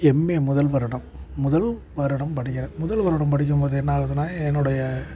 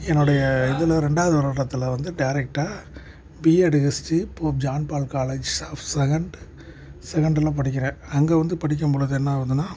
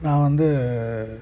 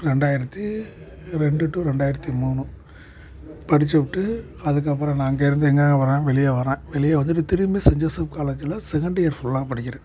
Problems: background sounds at intervals, background conversations at intervals